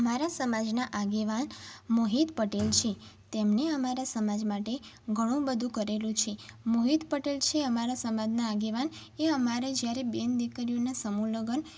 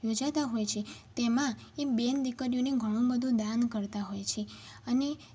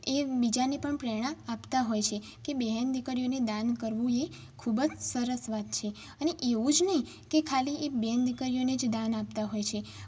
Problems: background sounds at intervals